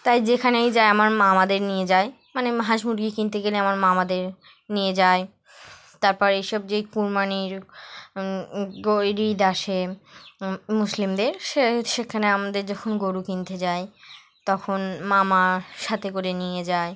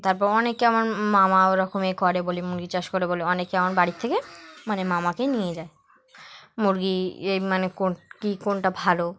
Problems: background sounds at intervals